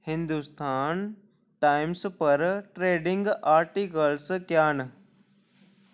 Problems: none marked